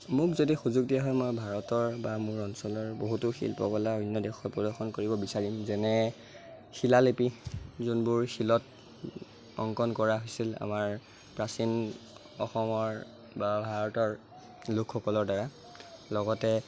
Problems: constant background noise